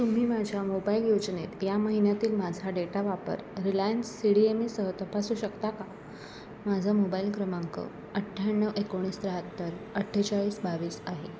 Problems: constant background noise